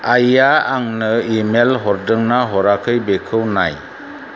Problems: constant background noise